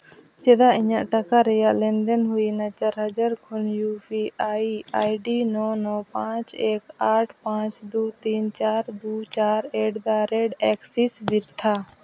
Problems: constant background noise